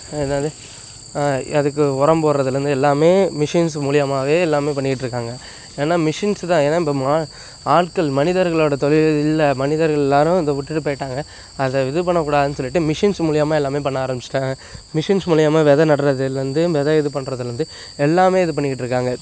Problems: constant background noise